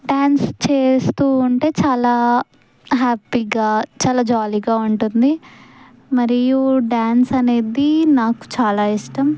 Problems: none marked